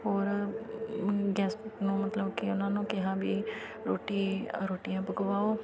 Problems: constant background noise, continuous background conversations